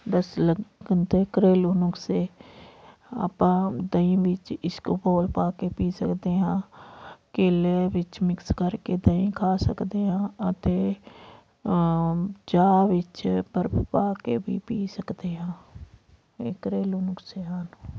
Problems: none marked